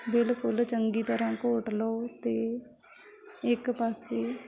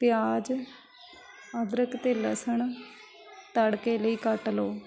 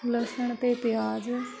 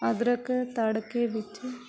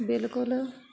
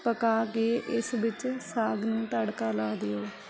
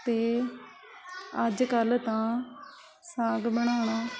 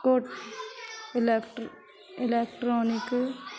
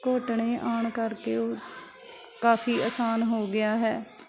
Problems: constant background noise, continuous background conversations